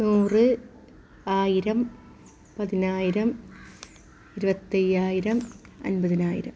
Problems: background sounds at intervals